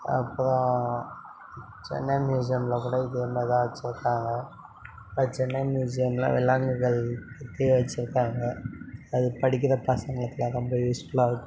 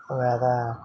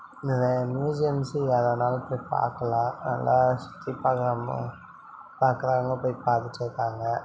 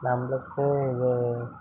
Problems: background conversations at intervals